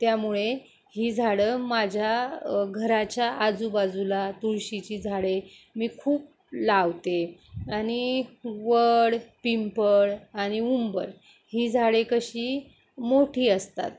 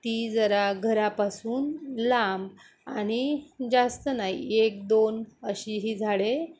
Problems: constant background noise